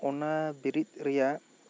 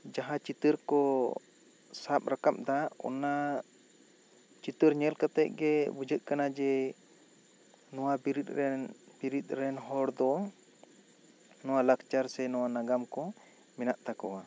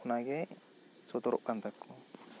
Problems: none marked